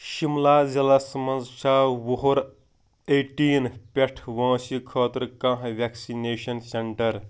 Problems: background sounds at intervals